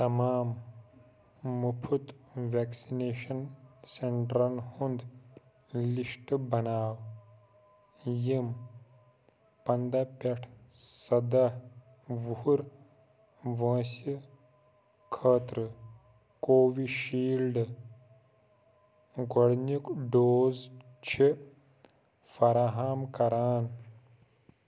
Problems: none marked